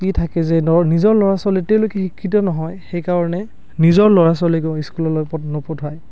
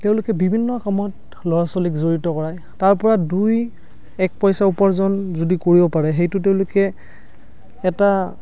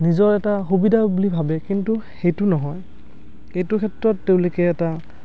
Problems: background conversations at intervals